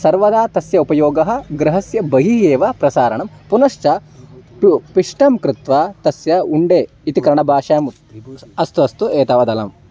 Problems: none marked